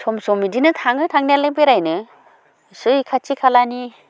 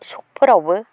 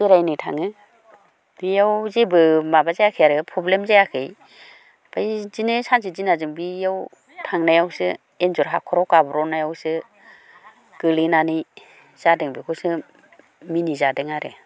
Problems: background conversations at intervals